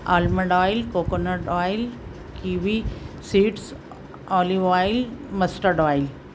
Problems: constant background noise